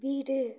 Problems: low volume